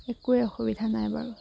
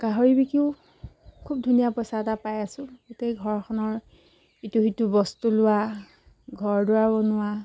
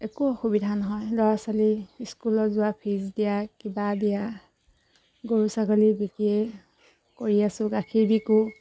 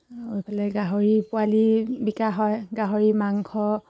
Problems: background sounds at intervals